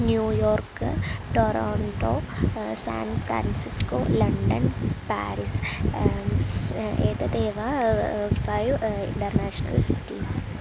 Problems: constant background noise